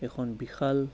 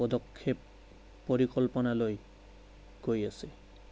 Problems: background sounds at intervals, low volume